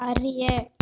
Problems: constant background noise